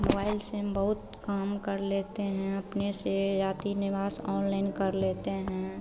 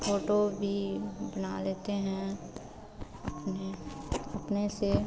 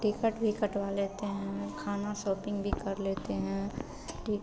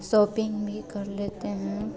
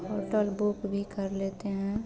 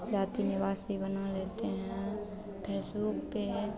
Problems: none marked